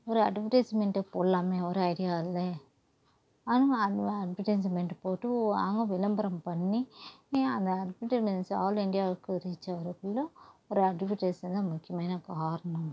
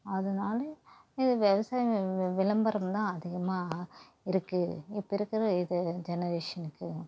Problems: constant background noise, low volume